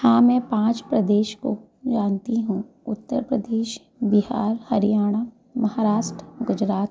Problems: constant background noise